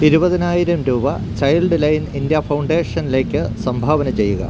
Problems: constant background noise